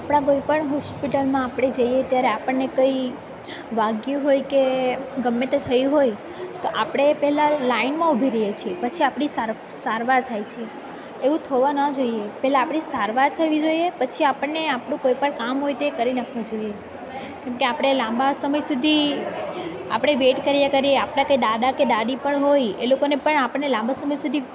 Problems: constant background noise